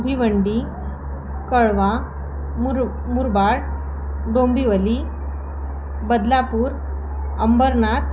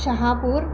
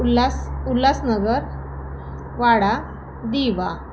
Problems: constant background noise, background conversations at intervals